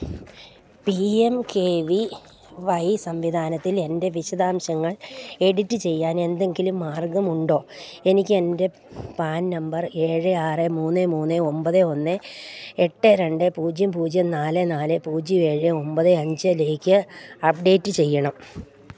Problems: none marked